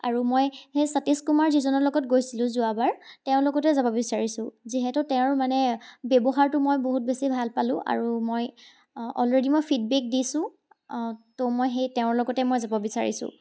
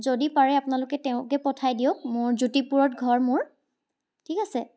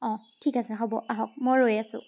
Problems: background sounds at intervals